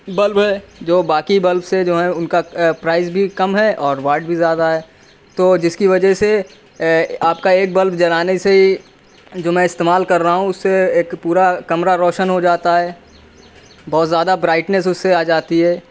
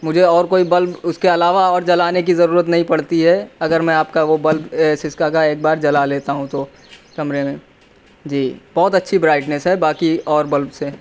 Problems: none marked